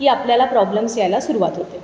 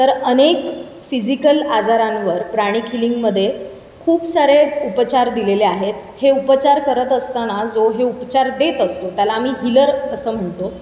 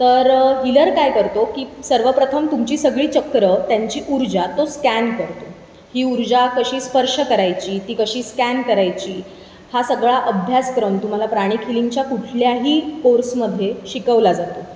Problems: constant background noise, background conversations at intervals